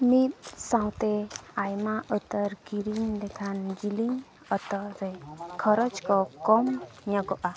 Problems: continuous background conversations